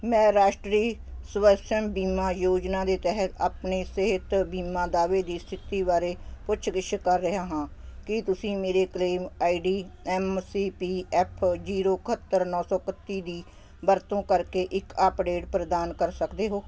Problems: constant background noise